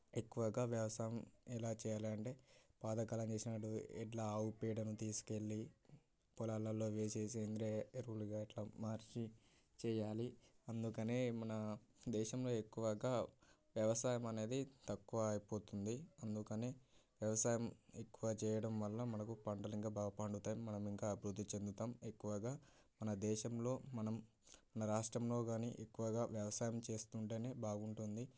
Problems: background sounds at intervals, low volume